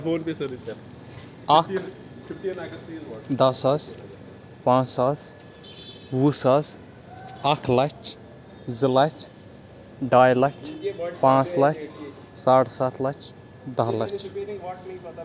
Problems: background sounds at intervals, background conversations at intervals